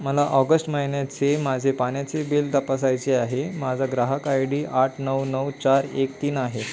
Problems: none marked